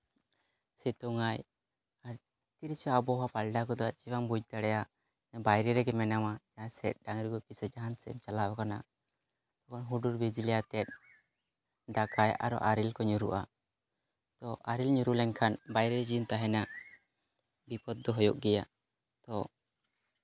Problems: background sounds at intervals